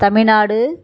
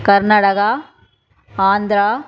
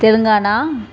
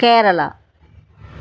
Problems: background sounds at intervals